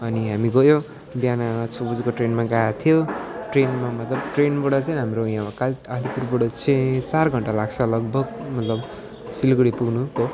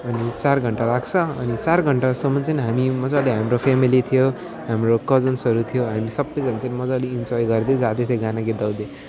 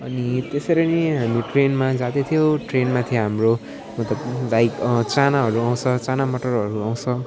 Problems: constant background noise, continuous background conversations